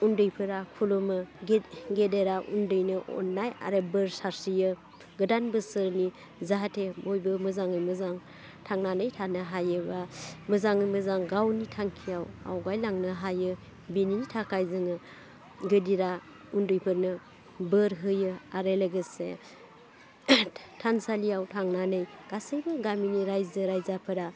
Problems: constant background noise